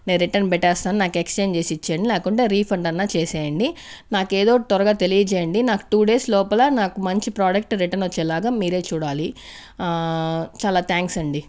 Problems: constant background noise